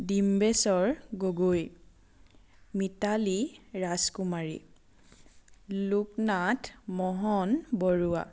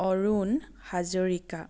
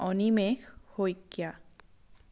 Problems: none marked